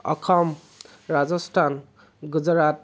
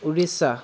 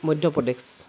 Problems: constant background noise